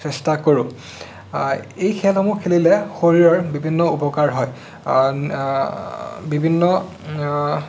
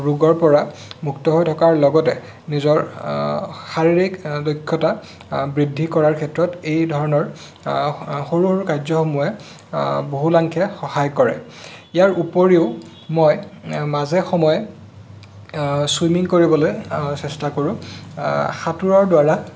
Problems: none marked